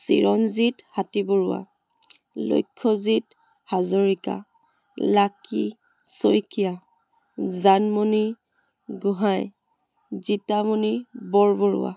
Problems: background conversations at intervals